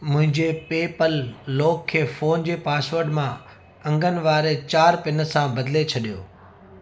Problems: constant background noise, echo